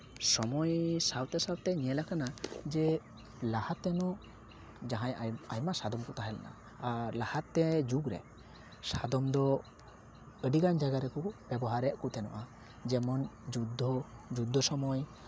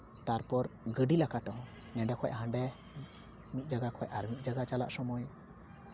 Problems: constant background noise, continuous background conversations